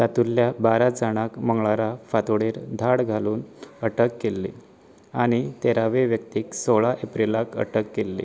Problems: none marked